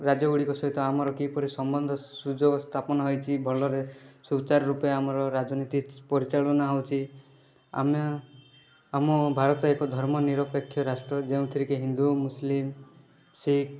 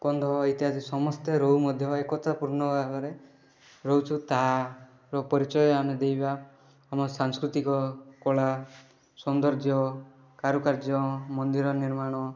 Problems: none marked